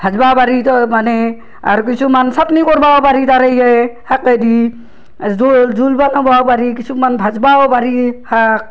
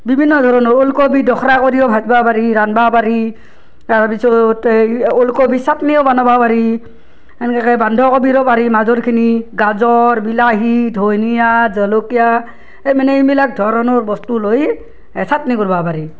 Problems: background sounds at intervals